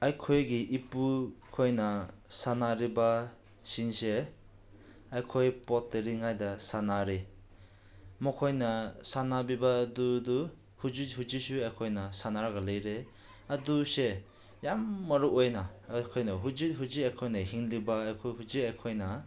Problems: background sounds at intervals